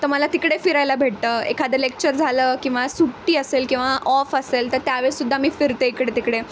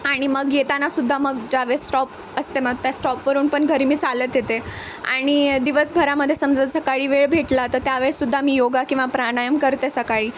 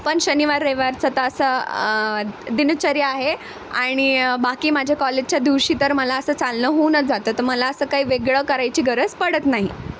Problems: constant background noise